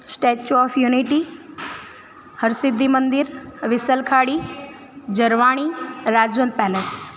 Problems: constant background noise